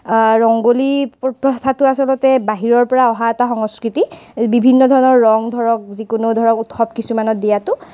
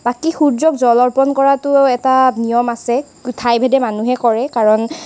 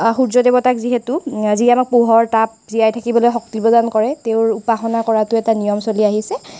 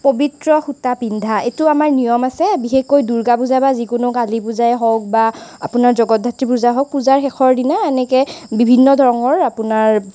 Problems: constant background noise